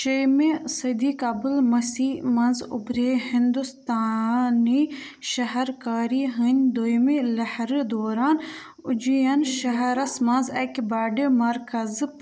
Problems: background sounds at intervals, background conversations at intervals